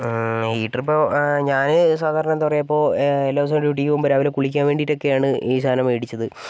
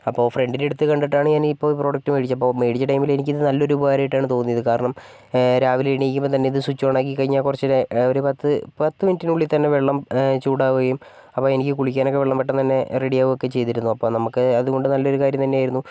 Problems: none marked